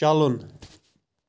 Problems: none marked